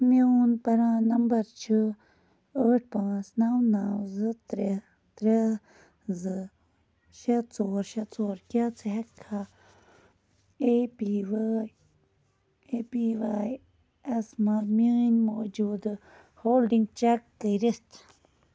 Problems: none marked